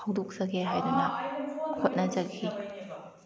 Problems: background conversations at intervals